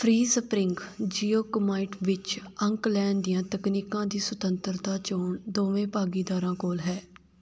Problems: none marked